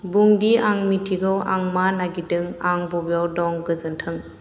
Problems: constant background noise